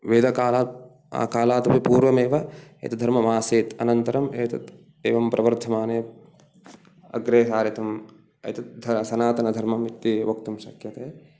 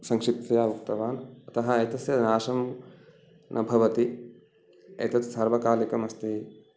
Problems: none marked